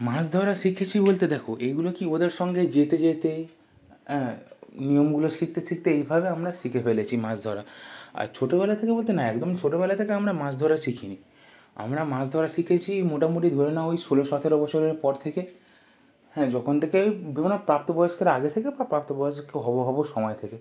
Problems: none marked